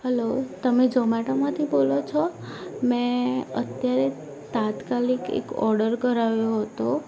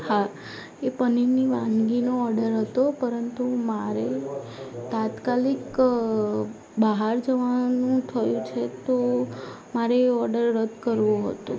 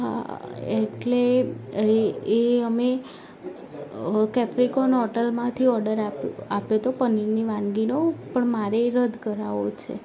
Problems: constant background noise